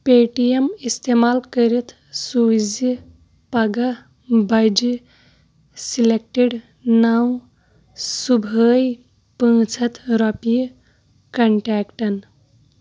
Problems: constant background noise